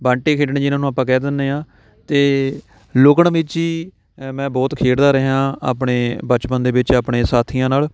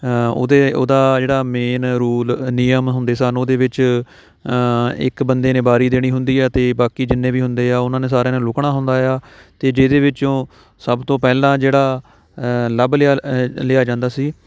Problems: none marked